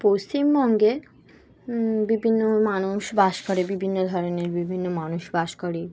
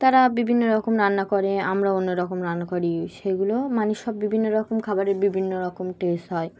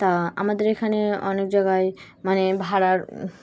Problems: constant background noise